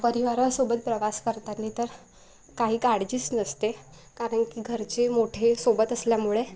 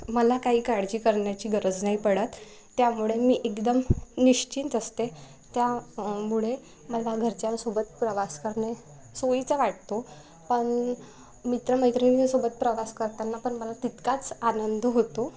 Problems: none marked